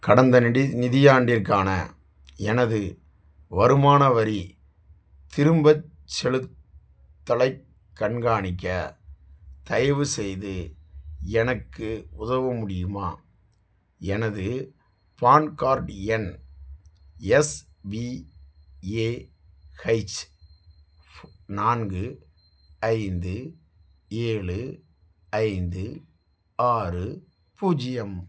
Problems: none marked